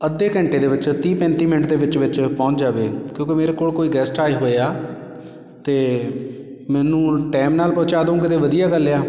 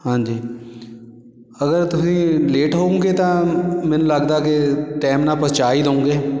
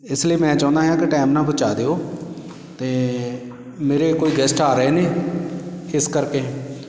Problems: background sounds at intervals